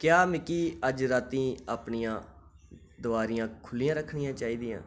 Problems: none marked